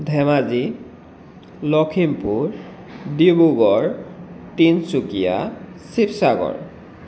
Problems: constant background noise, echo